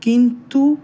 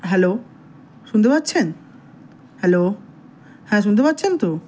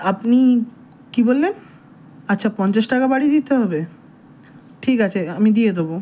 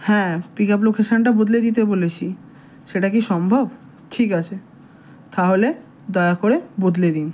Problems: background sounds at intervals